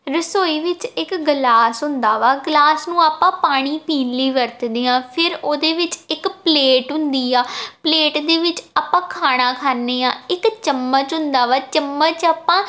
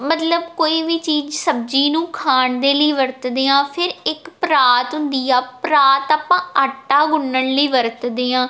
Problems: none marked